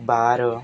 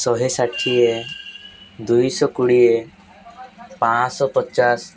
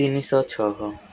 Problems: constant background noise